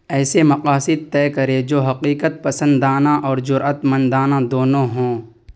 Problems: none marked